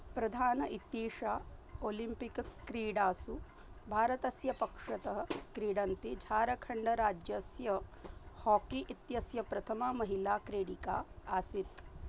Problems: low volume